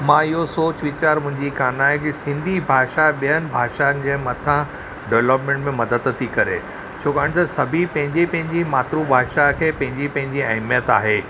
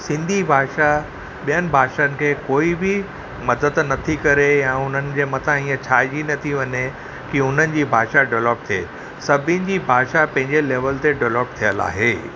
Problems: none marked